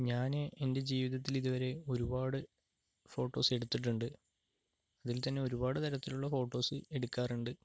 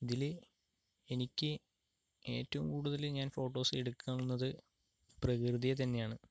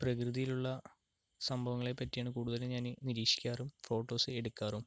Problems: low volume